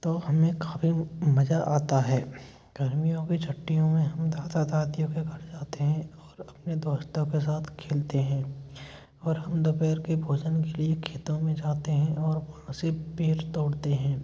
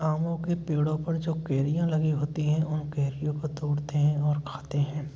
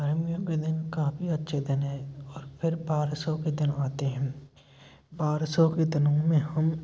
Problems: none marked